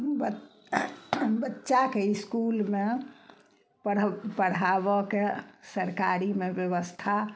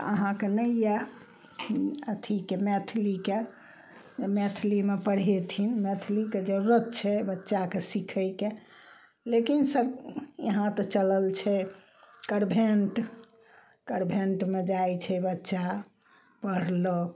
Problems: none marked